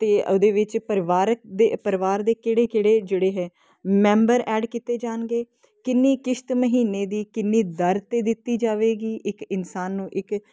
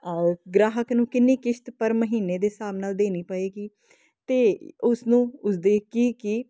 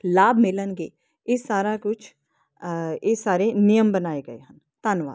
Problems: constant background noise